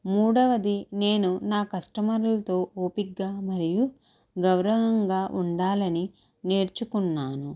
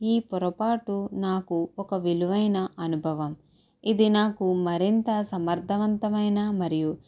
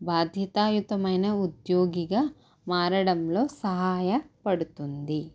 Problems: low volume